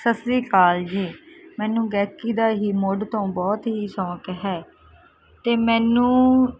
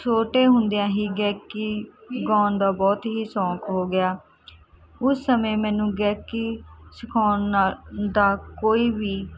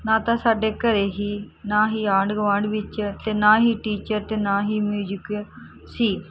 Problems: constant background noise